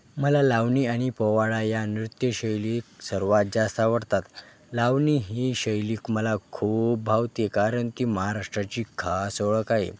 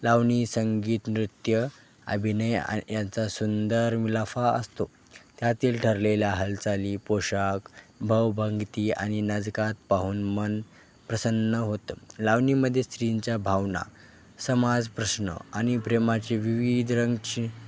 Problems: constant background noise, background conversations at intervals